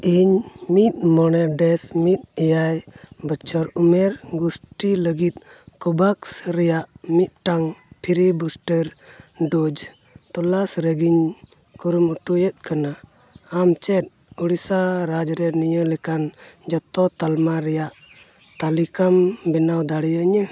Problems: none marked